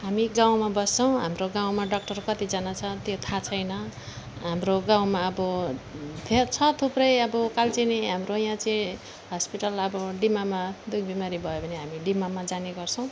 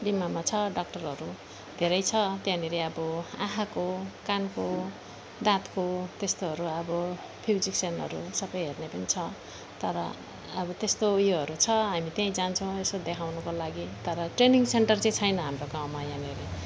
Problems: background sounds at intervals